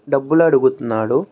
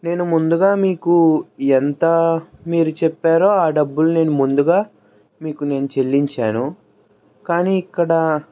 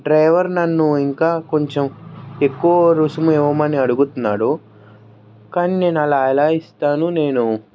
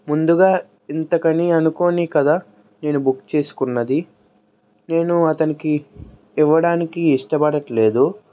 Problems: background sounds at intervals, background conversations at intervals